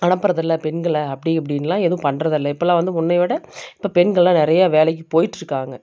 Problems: none marked